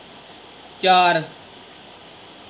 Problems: constant background noise